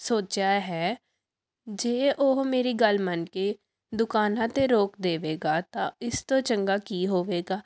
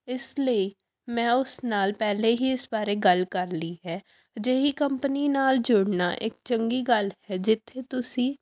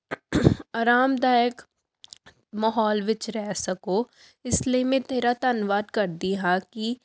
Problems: background sounds at intervals